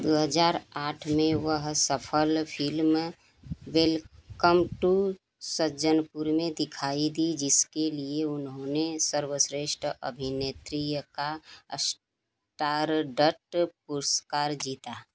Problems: none marked